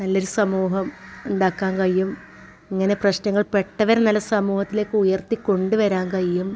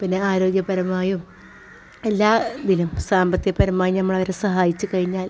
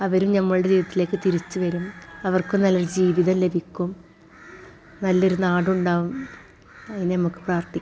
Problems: background sounds at intervals